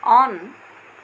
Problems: none marked